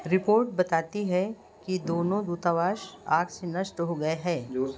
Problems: background sounds at intervals, background conversations at intervals